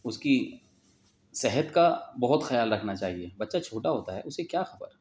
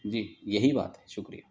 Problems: none marked